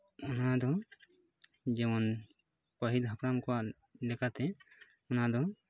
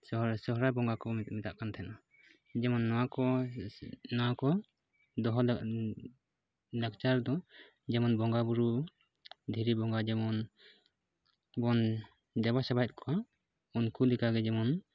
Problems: background sounds at intervals